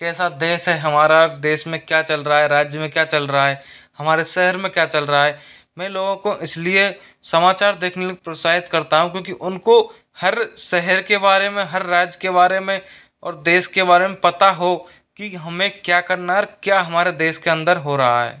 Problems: none marked